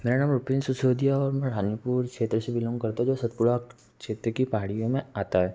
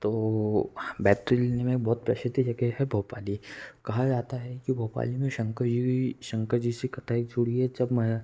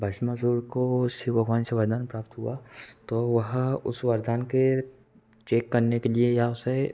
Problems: constant background noise